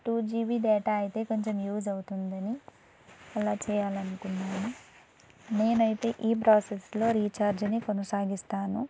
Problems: none marked